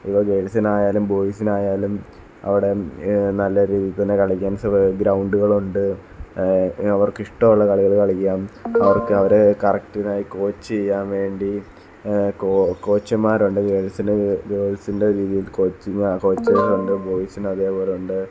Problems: background sounds at intervals